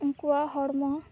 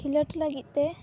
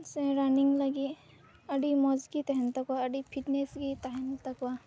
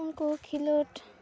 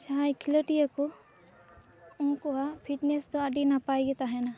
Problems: background sounds at intervals